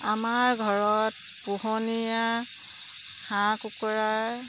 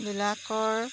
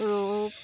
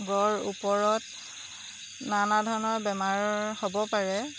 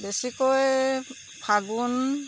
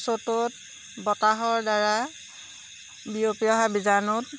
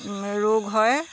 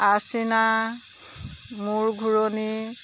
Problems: none marked